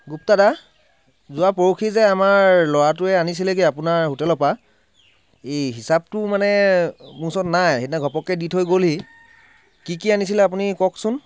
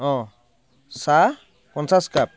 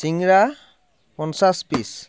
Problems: background sounds at intervals